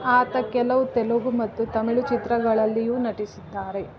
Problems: background sounds at intervals